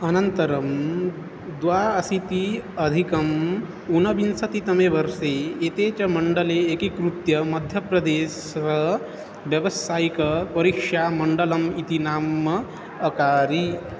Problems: constant background noise